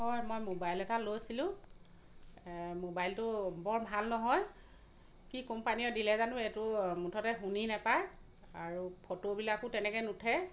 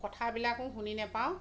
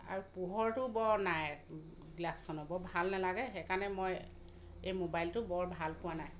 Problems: constant background noise